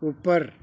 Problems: background sounds at intervals